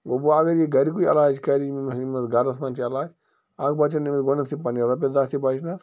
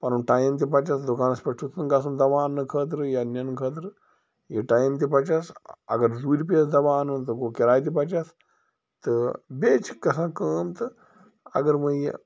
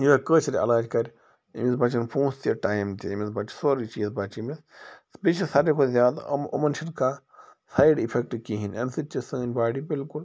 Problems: constant background noise